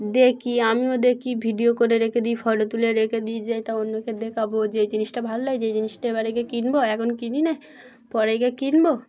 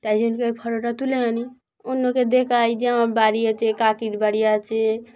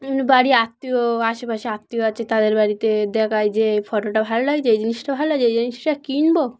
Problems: none marked